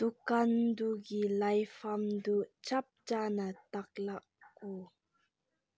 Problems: background sounds at intervals